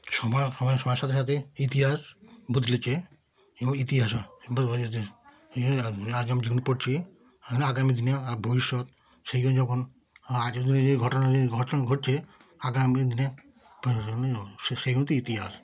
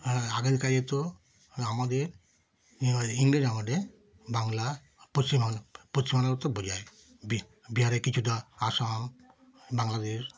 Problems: continuous background conversations